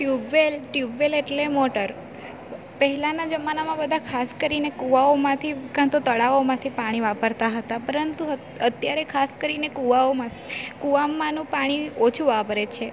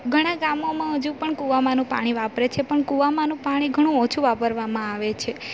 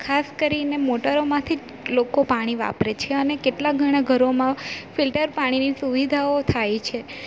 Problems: constant background noise